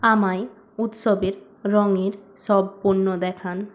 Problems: constant background noise